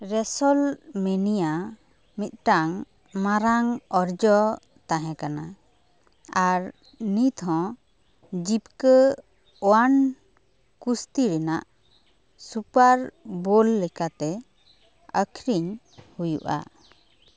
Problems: none marked